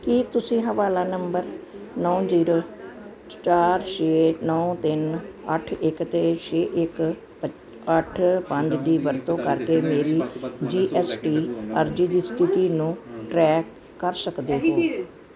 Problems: background sounds at intervals